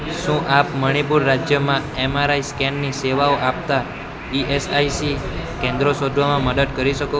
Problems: constant background noise